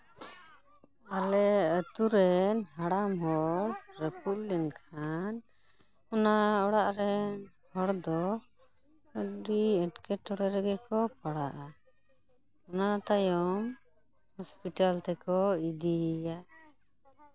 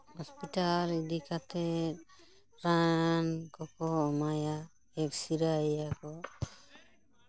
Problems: background conversations at intervals